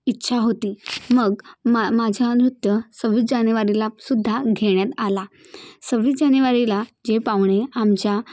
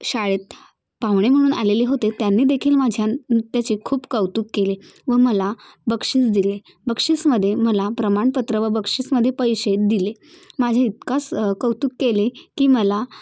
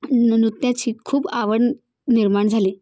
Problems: none marked